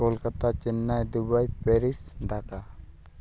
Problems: none marked